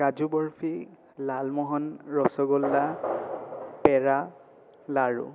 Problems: constant background noise